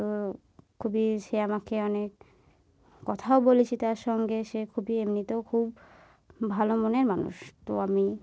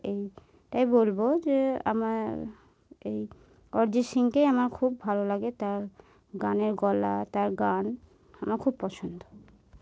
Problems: background sounds at intervals